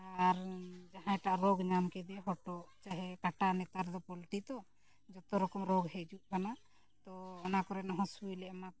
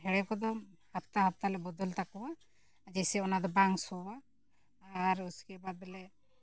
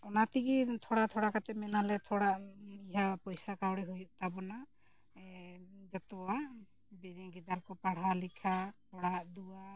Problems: low volume